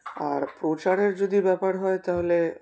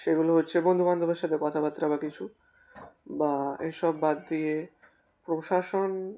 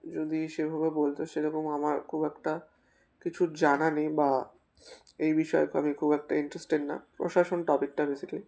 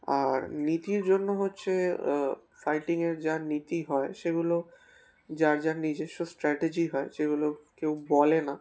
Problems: constant background noise